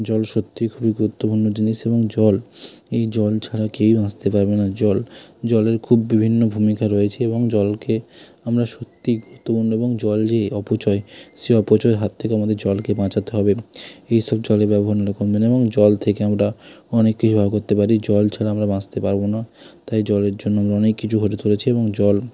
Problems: constant background noise